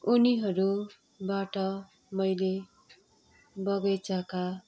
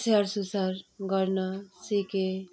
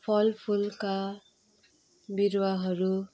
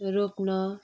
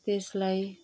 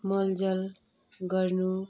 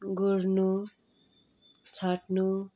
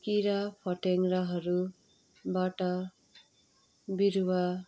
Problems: constant background noise